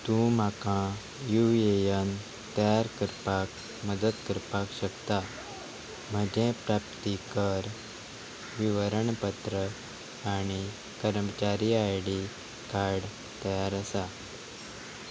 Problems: none marked